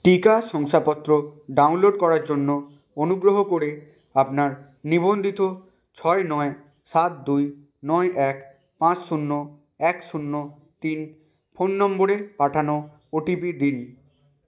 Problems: none marked